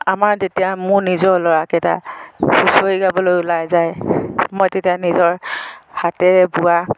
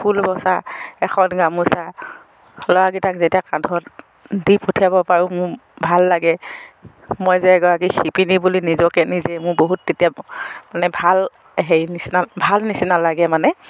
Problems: none marked